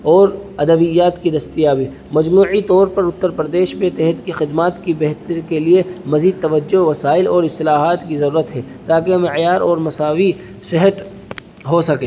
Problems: constant background noise